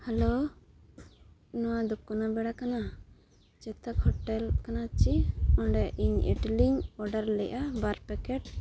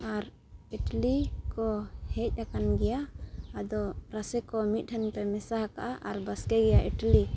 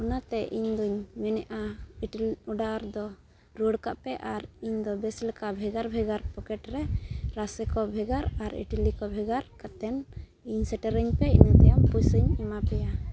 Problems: background sounds at intervals